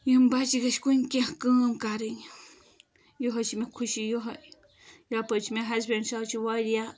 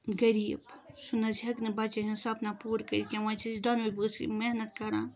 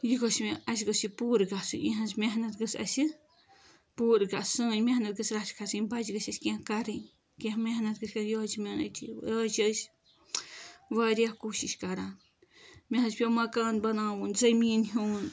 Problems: background sounds at intervals